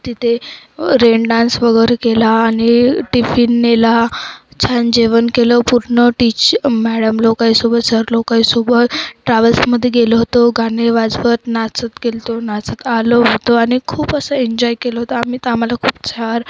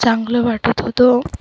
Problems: background sounds at intervals, background conversations at intervals